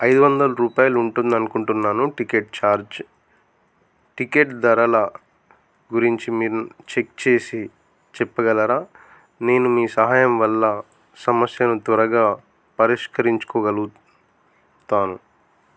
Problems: none marked